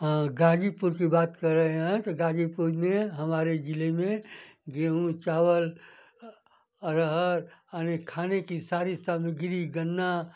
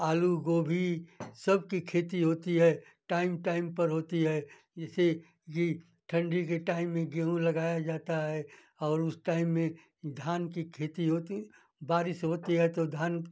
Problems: none marked